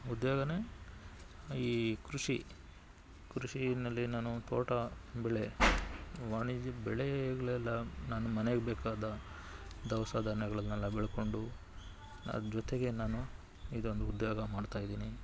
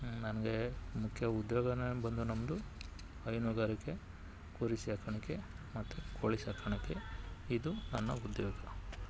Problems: background sounds at intervals